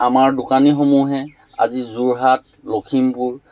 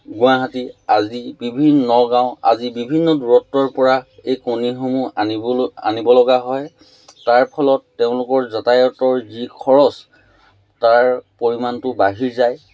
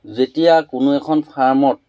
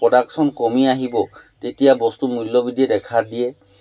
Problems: none marked